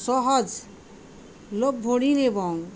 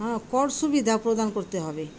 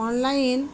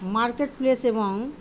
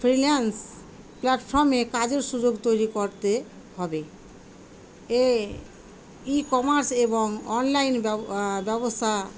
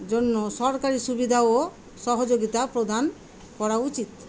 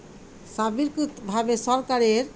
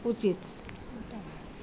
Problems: constant background noise, background conversations at intervals